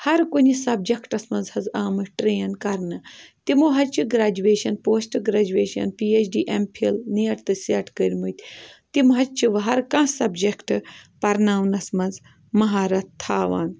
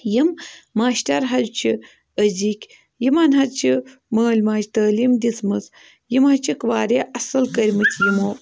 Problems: none marked